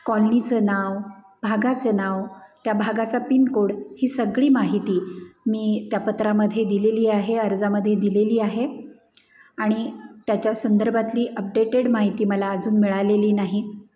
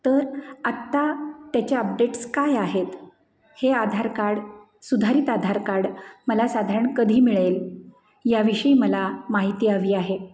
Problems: none marked